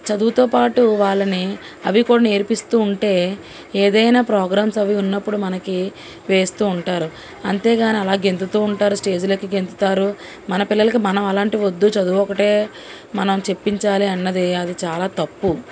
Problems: constant background noise